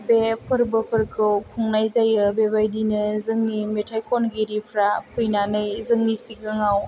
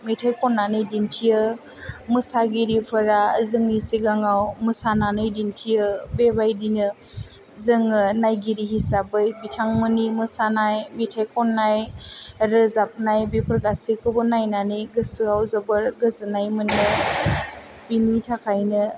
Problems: low volume